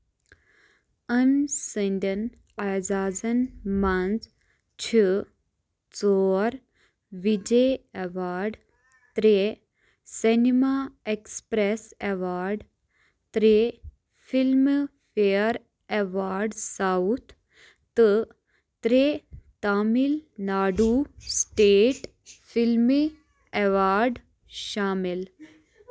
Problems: background sounds at intervals